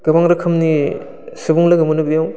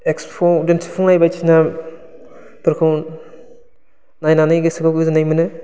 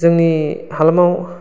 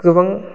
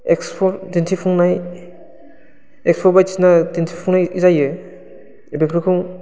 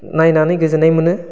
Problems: constant background noise